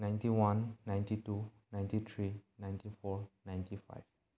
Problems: none marked